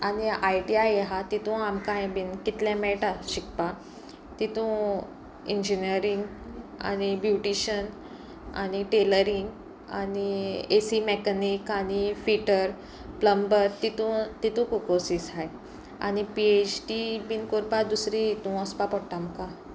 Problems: none marked